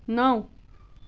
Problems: background sounds at intervals